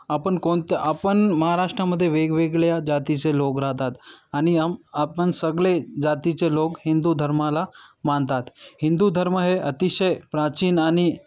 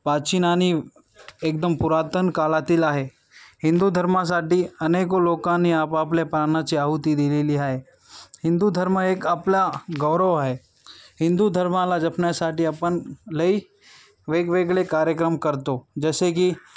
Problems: background sounds at intervals, background conversations at intervals